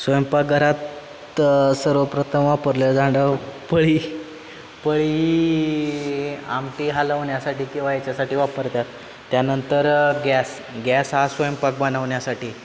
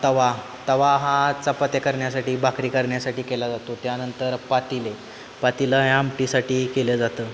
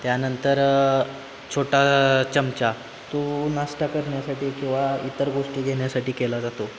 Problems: constant background noise, background conversations at intervals